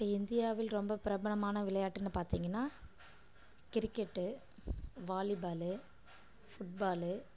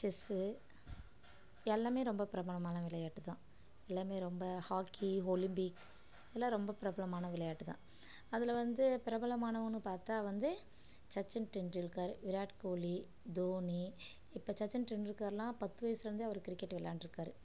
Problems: low volume